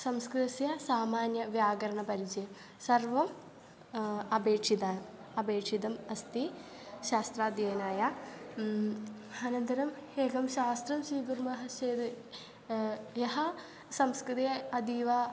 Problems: none marked